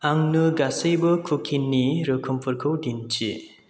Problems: constant background noise